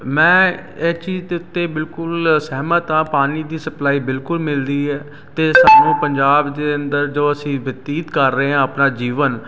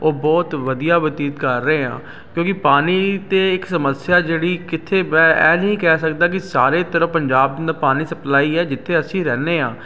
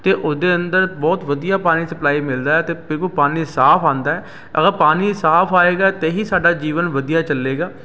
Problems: constant background noise